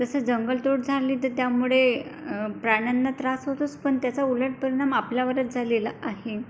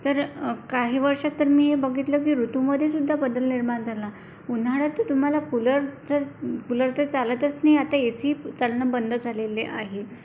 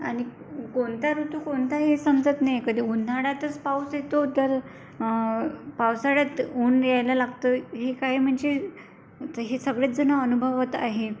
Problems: constant background noise